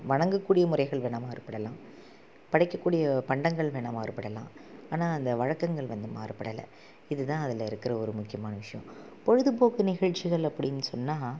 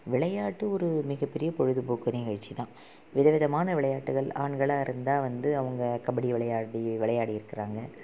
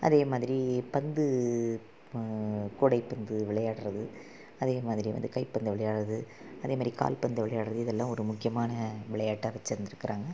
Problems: low volume